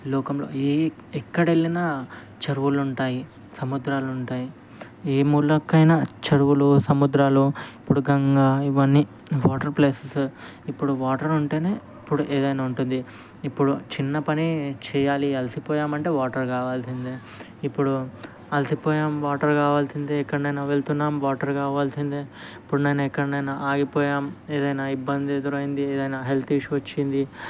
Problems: constant background noise